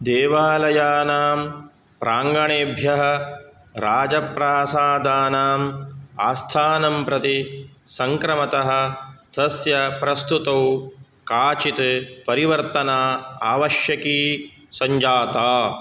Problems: none marked